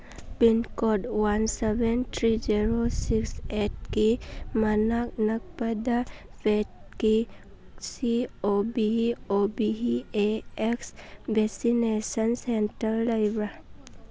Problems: background conversations at intervals